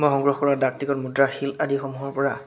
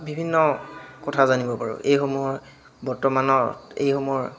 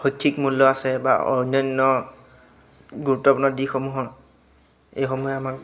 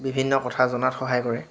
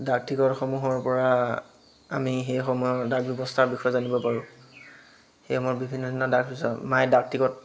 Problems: constant background noise, background conversations at intervals